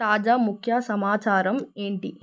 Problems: none marked